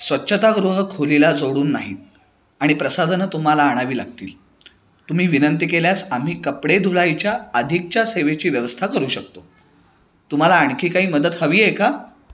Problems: background sounds at intervals, background conversations at intervals